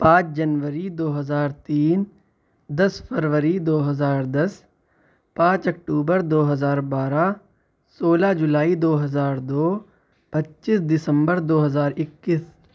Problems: none marked